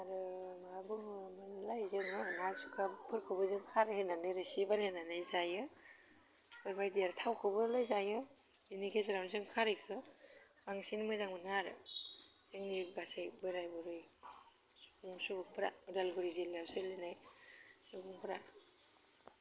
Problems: none marked